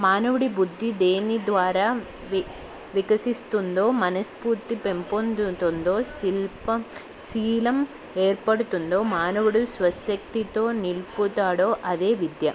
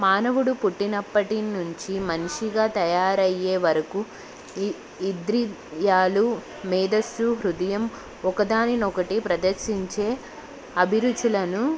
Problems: none marked